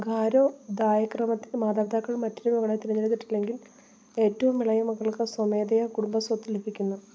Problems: none marked